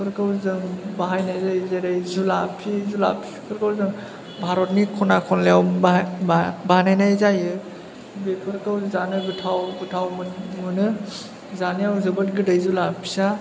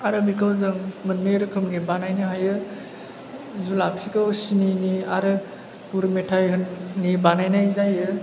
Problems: constant background noise